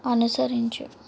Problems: constant background noise